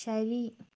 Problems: none marked